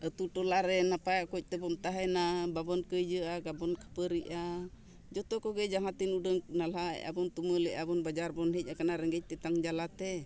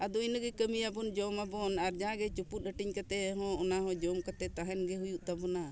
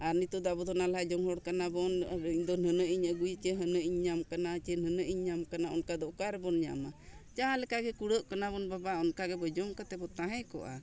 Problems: none marked